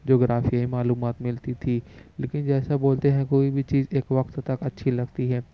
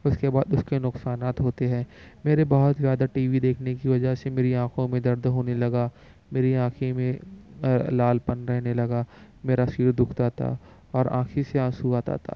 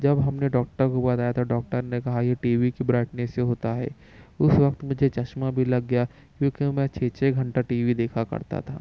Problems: none marked